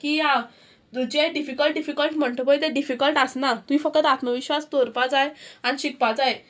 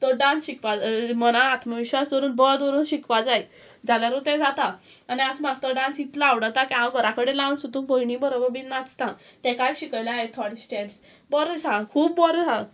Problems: none marked